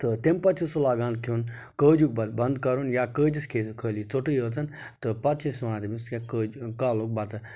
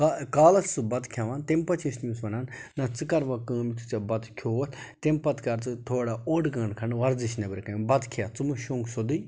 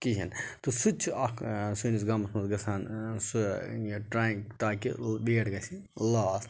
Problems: background sounds at intervals